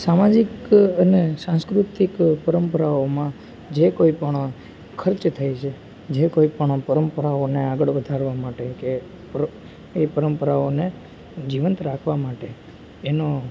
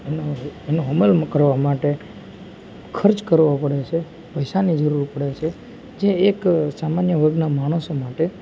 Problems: constant background noise, background conversations at intervals